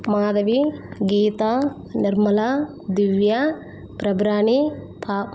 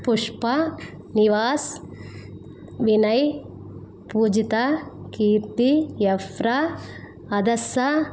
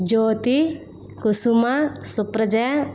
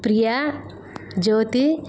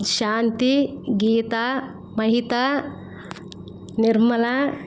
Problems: constant background noise